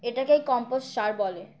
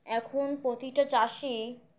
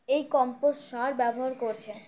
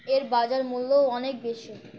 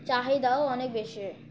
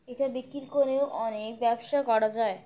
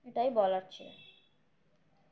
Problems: none marked